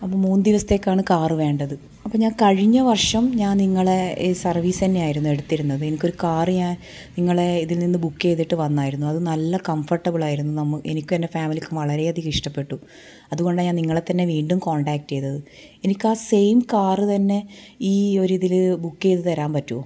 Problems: none marked